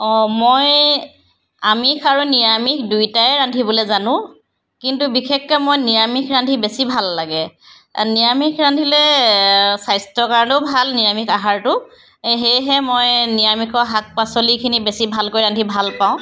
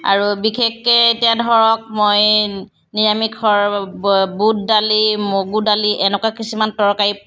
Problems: none marked